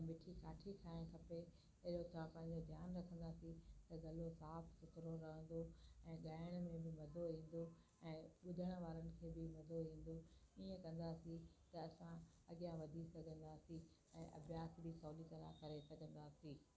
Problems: constant background noise, low volume